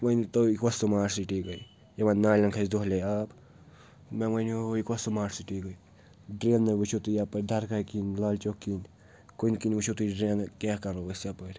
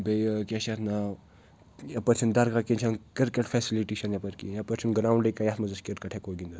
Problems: none marked